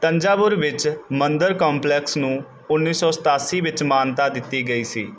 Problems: background sounds at intervals